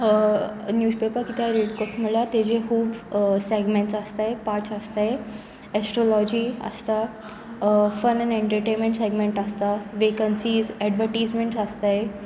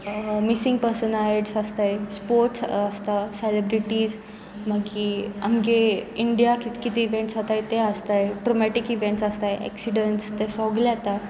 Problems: none marked